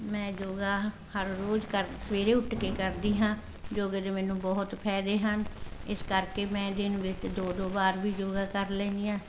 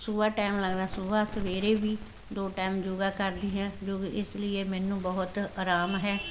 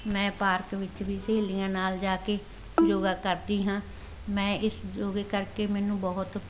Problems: background conversations at intervals